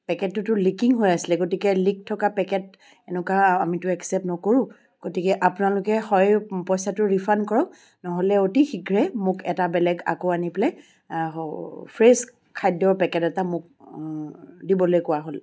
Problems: background sounds at intervals